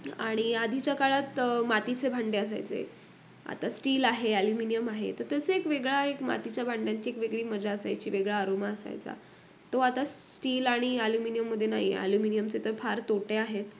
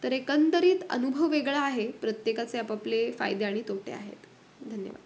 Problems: none marked